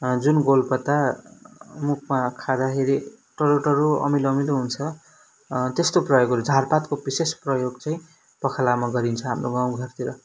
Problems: background sounds at intervals